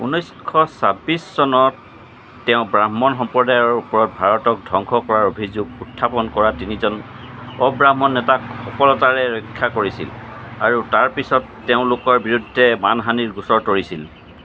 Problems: constant background noise